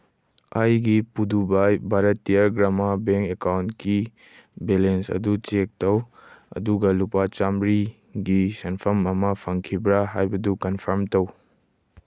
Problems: none marked